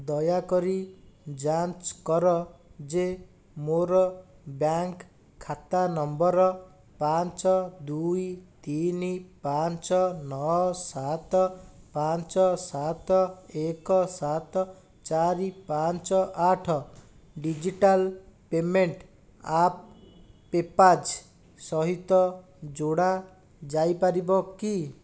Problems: none marked